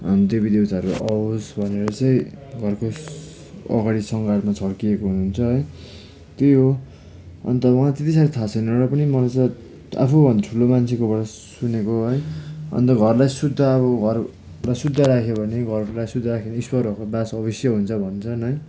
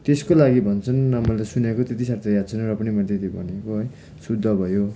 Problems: constant background noise